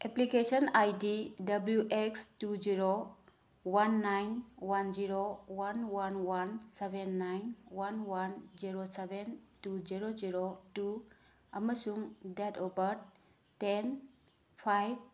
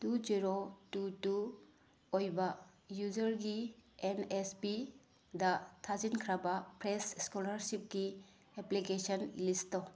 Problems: background sounds at intervals